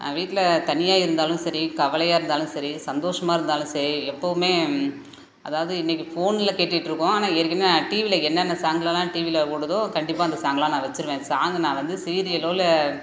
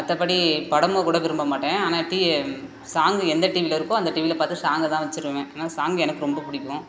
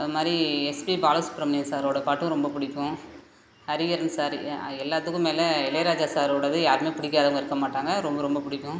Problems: none marked